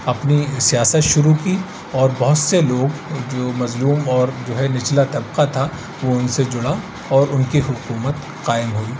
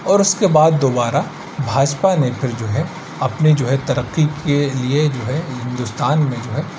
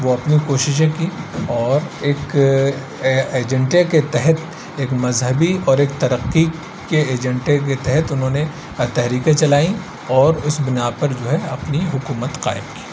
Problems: constant background noise